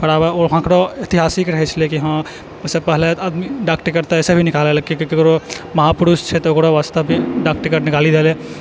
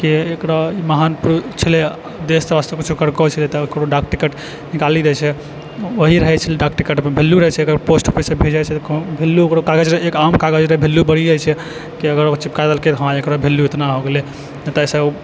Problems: background sounds at intervals